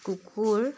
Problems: constant background noise, background conversations at intervals